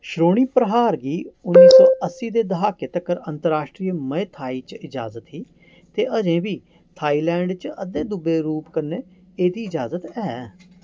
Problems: background sounds at intervals